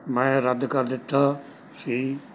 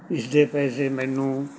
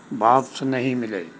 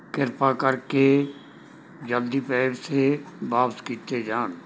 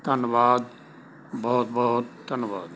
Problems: none marked